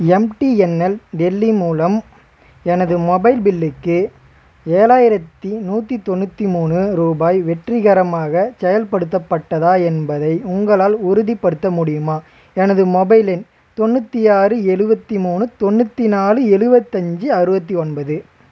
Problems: constant background noise, background conversations at intervals